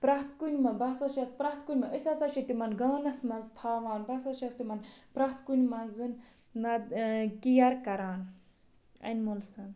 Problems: constant background noise